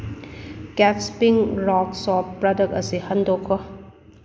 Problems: none marked